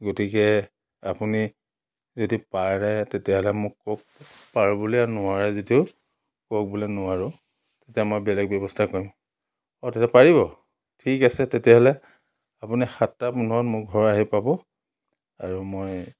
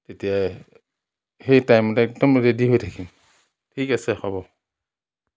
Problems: none marked